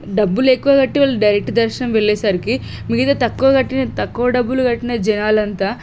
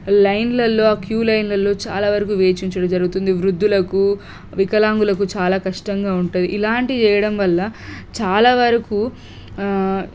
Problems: none marked